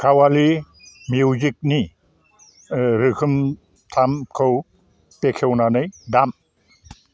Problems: constant background noise